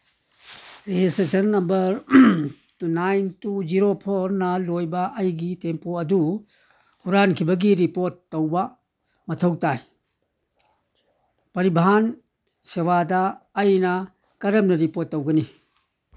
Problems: none marked